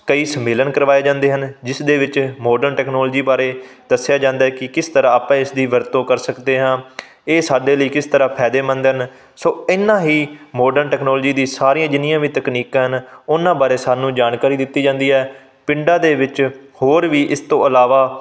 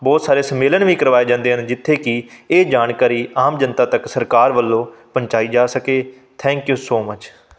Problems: background sounds at intervals